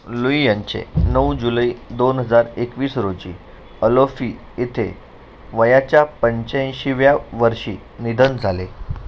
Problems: none marked